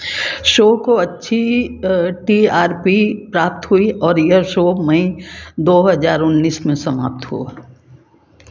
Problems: constant background noise